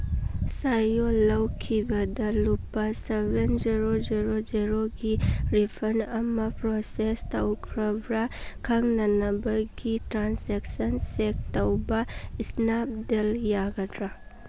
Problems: background sounds at intervals